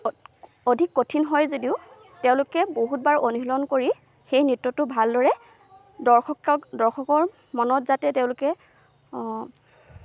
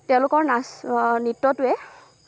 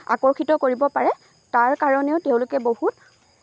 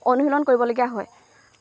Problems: constant background noise